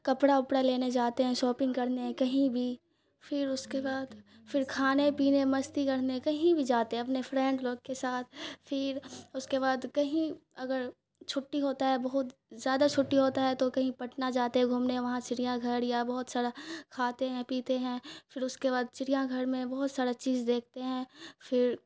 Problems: none marked